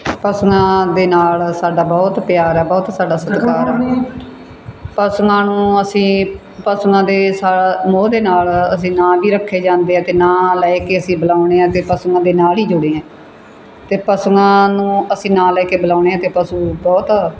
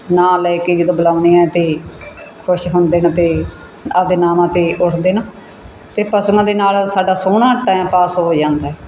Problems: none marked